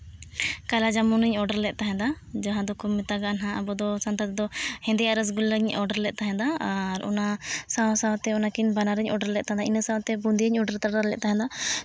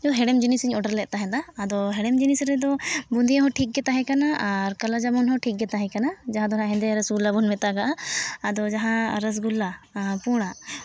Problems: background sounds at intervals